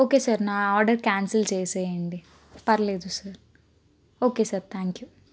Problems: none marked